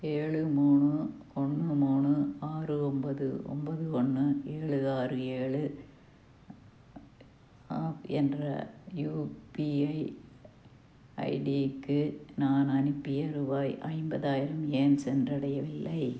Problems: low volume